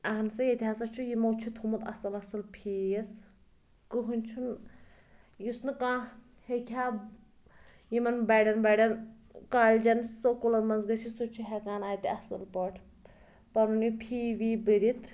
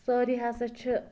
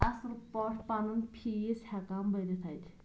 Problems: background conversations at intervals